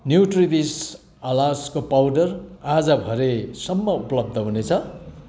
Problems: none marked